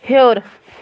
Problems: constant background noise